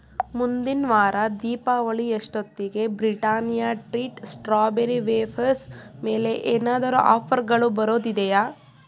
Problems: none marked